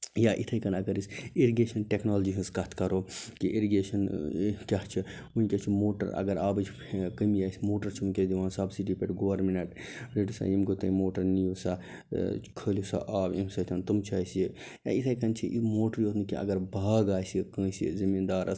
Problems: none marked